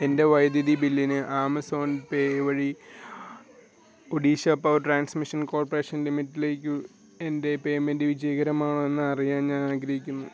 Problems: none marked